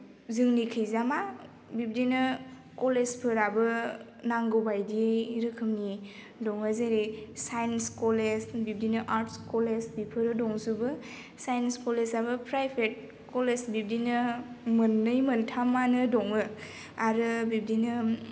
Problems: constant background noise